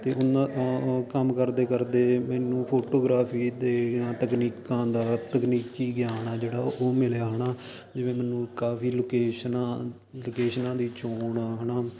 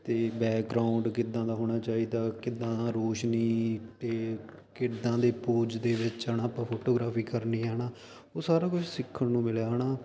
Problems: constant background noise